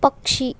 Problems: none marked